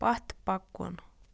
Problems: background sounds at intervals